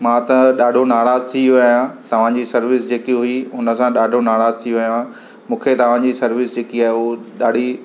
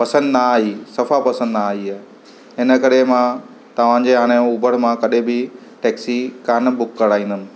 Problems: constant background noise